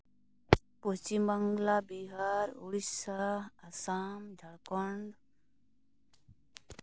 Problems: background sounds at intervals